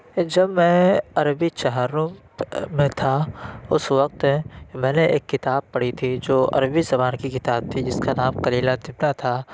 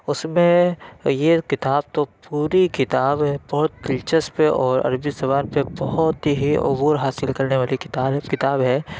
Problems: background sounds at intervals